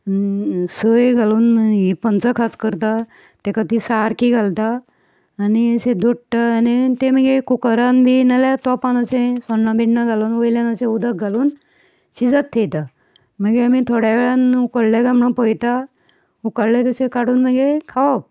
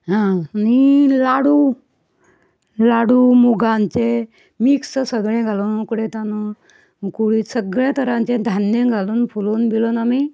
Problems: none marked